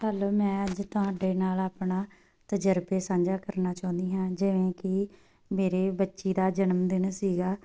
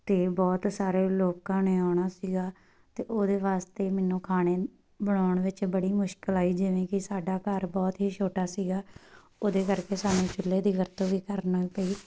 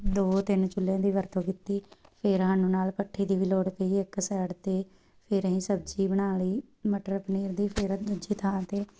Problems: none marked